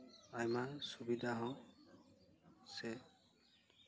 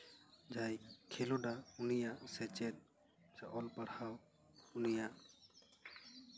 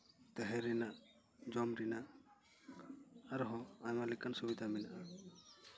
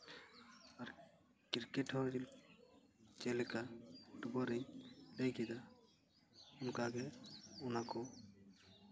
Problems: background conversations at intervals